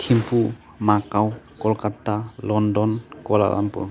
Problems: constant background noise